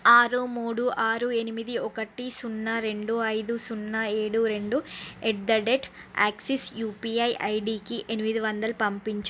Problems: none marked